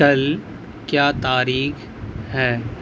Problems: constant background noise